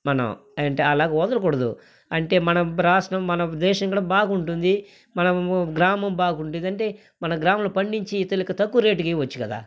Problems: background sounds at intervals